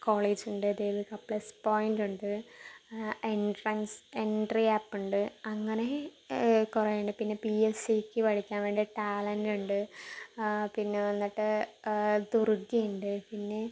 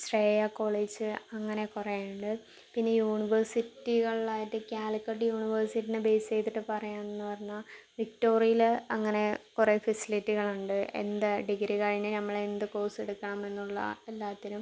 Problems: low volume